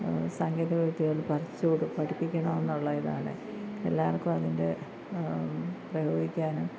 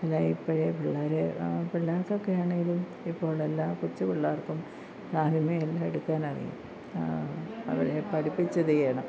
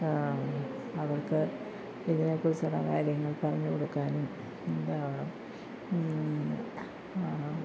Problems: low volume